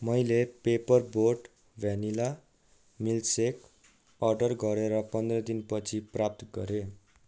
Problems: background sounds at intervals